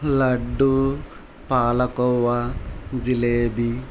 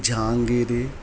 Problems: constant background noise